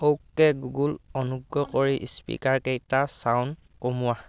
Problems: background conversations at intervals